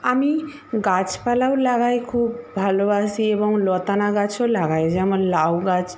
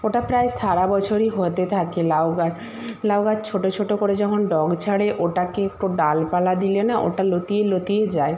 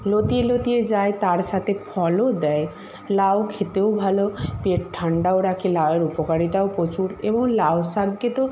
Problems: constant background noise